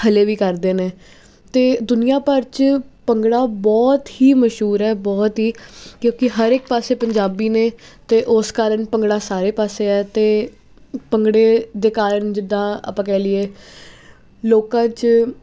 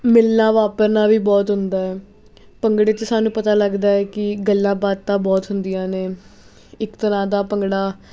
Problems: constant background noise